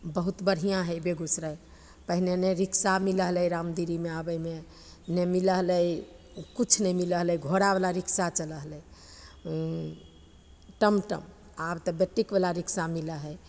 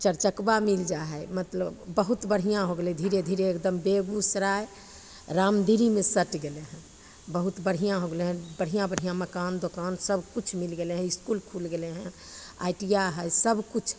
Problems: none marked